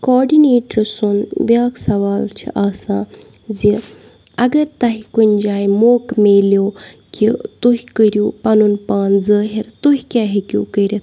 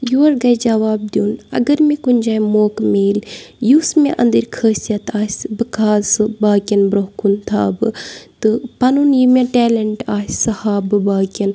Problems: none marked